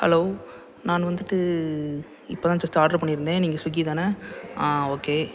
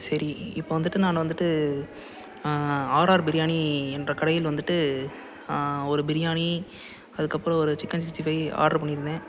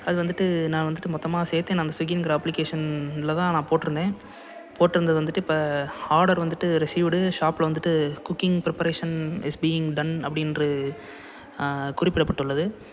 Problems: constant background noise, background conversations at intervals